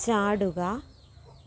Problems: none marked